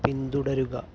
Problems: low volume